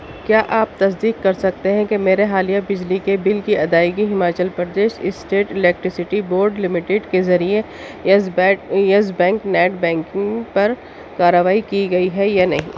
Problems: constant background noise